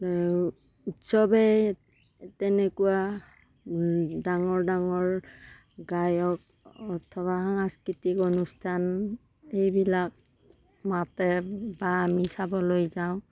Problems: none marked